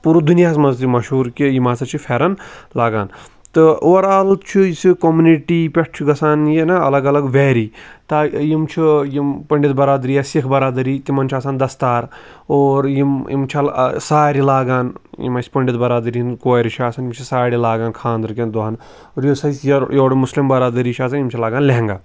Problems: background sounds at intervals